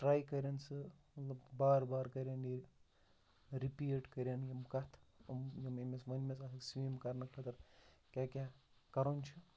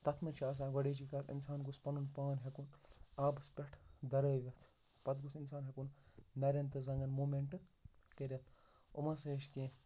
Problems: background sounds at intervals, low volume